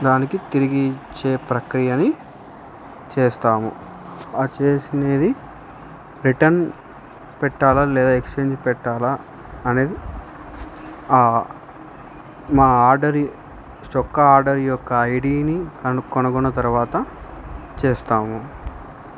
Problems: constant background noise